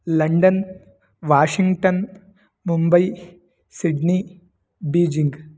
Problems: none marked